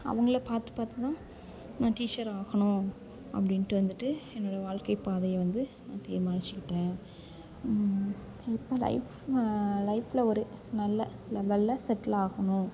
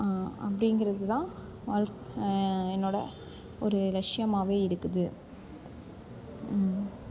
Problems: constant background noise, background conversations at intervals